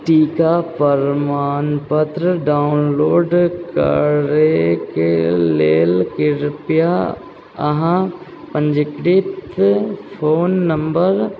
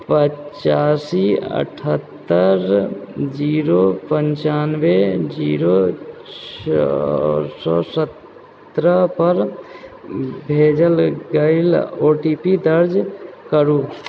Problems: background sounds at intervals